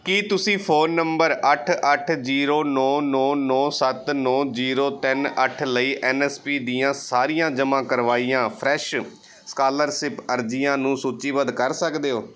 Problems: background sounds at intervals